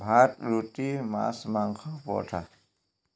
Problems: none marked